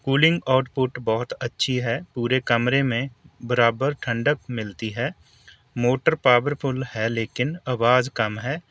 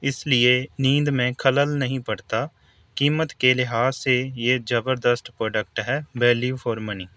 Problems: constant background noise